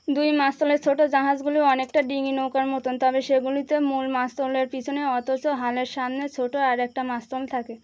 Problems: none marked